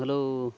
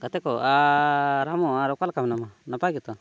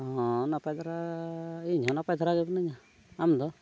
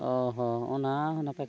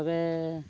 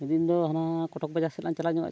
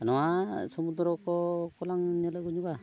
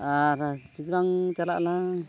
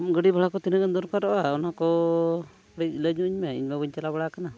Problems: none marked